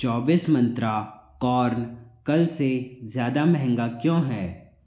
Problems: none marked